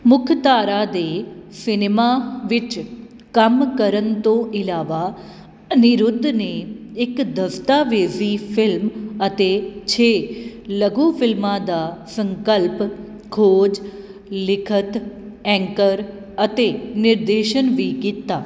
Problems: none marked